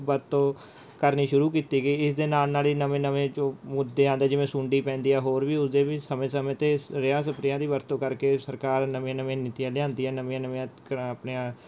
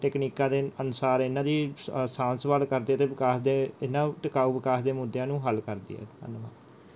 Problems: background sounds at intervals